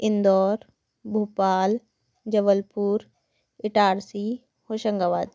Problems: none marked